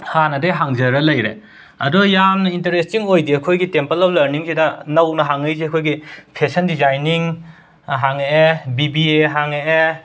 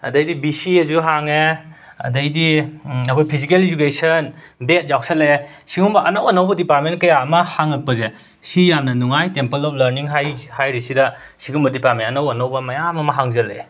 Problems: background sounds at intervals